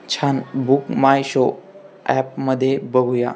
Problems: constant background noise, background conversations at intervals